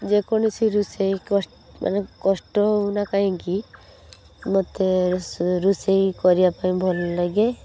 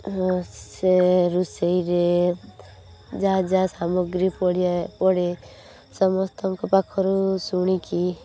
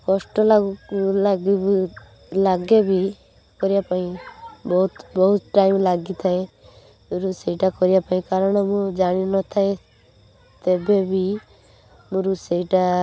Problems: none marked